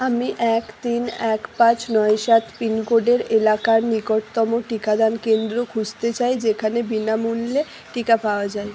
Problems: constant background noise